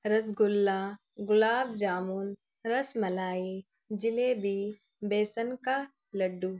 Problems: none marked